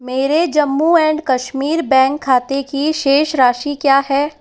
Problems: echo